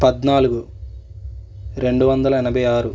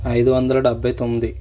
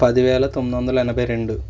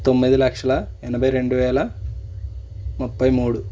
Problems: none marked